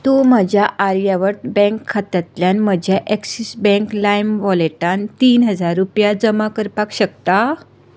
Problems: none marked